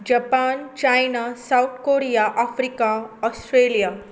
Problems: constant background noise